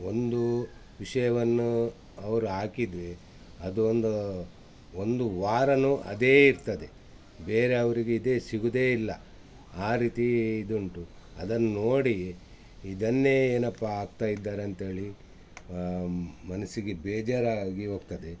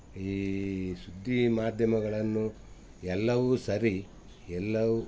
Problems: none marked